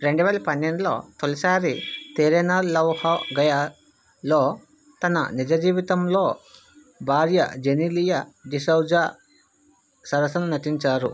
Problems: background sounds at intervals